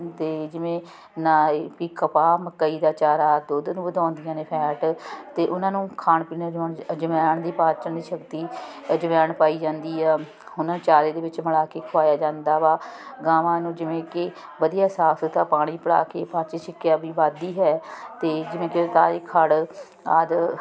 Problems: continuous background conversations